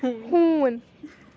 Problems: constant background noise, continuous background conversations